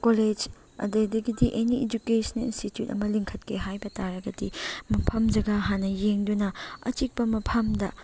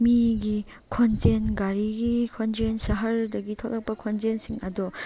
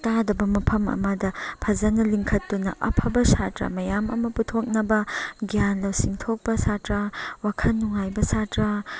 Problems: none marked